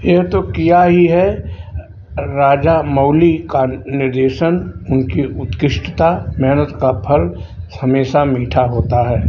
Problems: none marked